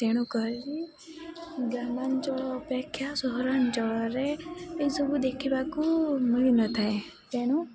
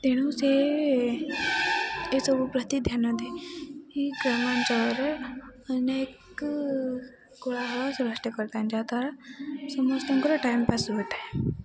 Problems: constant background noise